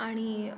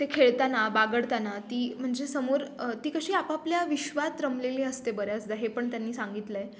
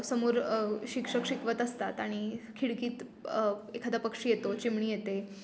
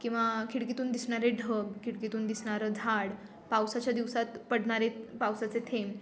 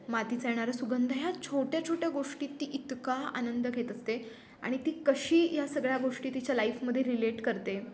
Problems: background sounds at intervals